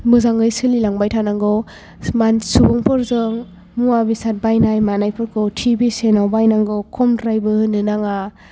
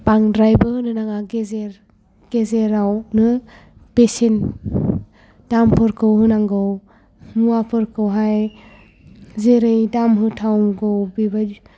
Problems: none marked